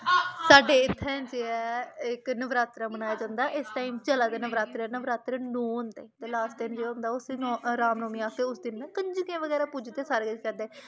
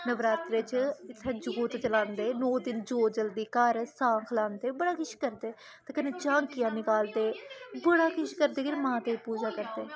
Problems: low volume